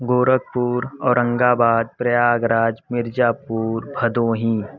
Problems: constant background noise